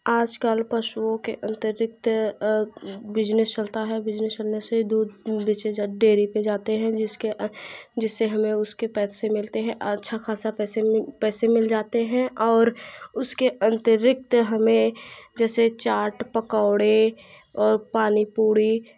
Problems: constant background noise